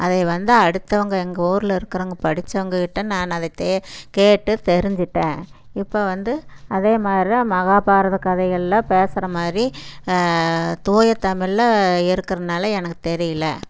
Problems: background sounds at intervals